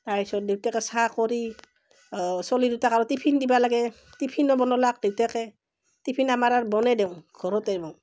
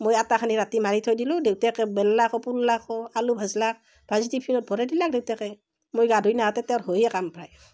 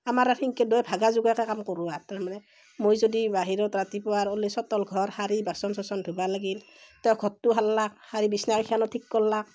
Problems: constant background noise